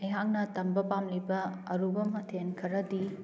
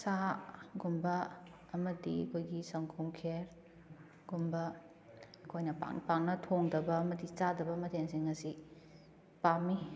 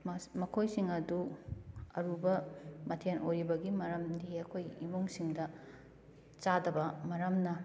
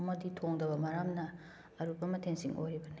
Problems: none marked